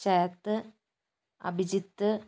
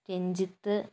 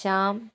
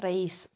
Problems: low volume